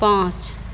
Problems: constant background noise